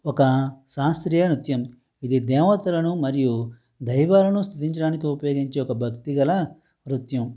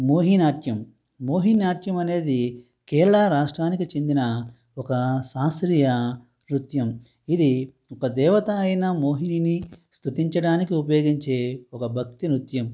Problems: none marked